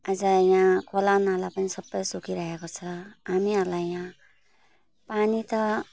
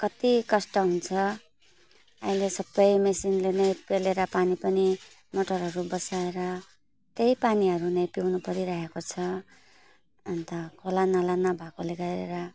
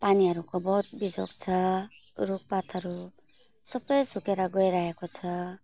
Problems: constant background noise